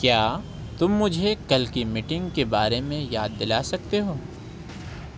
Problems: constant background noise